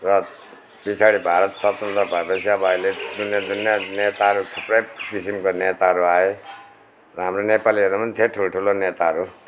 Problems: none marked